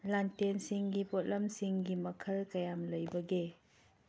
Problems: low volume